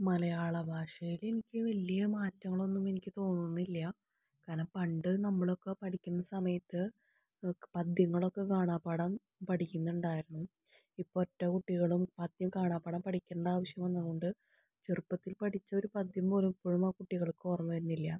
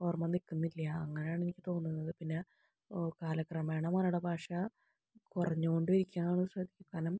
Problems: low volume